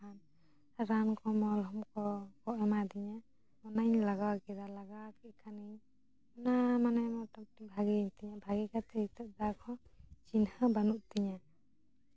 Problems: low volume